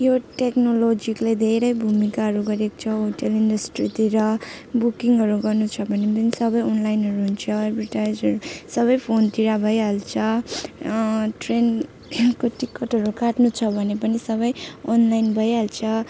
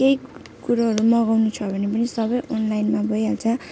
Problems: constant background noise